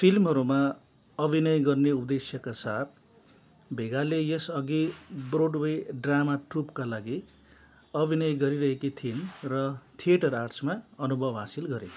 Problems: background sounds at intervals